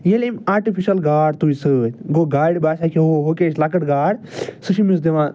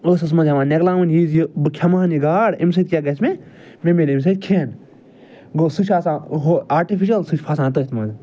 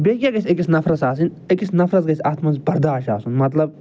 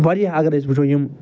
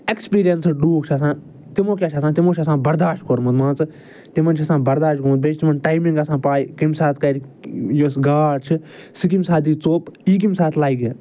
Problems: none marked